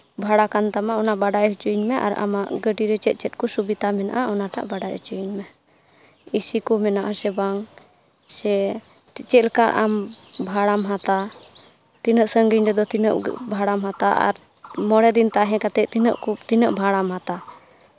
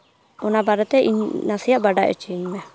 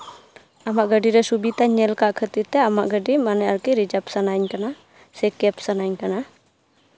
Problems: background sounds at intervals